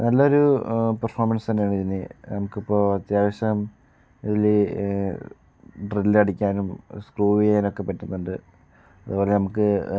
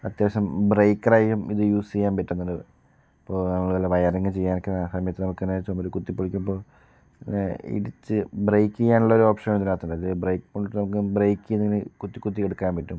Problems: none marked